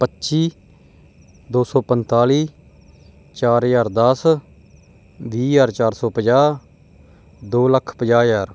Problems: background sounds at intervals